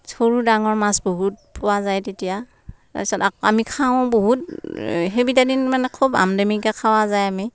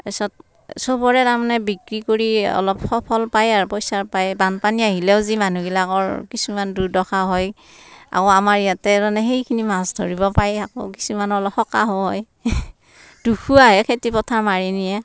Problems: none marked